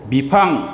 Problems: constant background noise